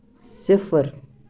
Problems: none marked